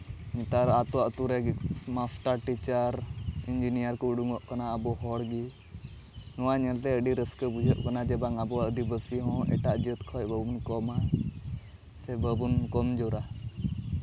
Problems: constant background noise, background conversations at intervals